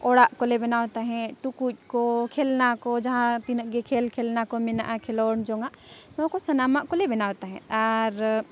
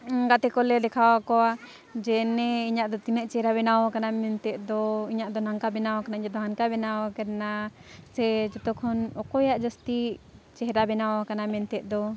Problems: background sounds at intervals, background conversations at intervals